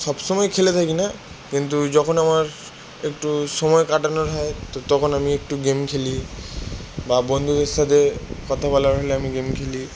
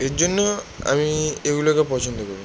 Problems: background sounds at intervals